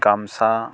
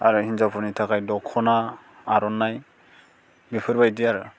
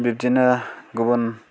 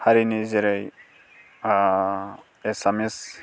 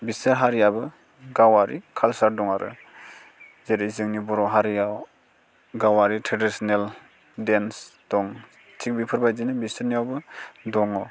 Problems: constant background noise